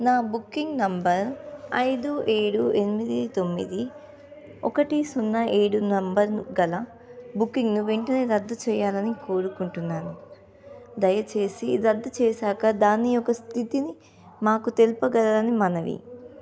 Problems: background conversations at intervals